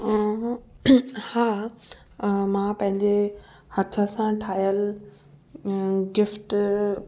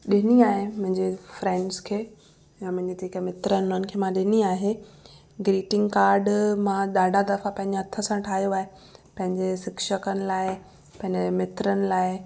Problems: constant background noise, echo